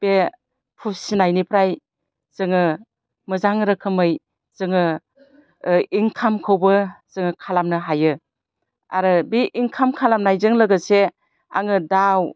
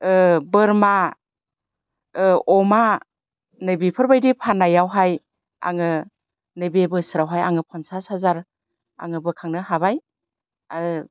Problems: constant background noise